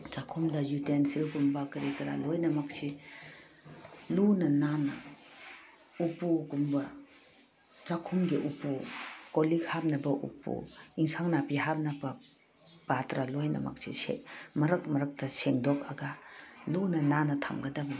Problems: background sounds at intervals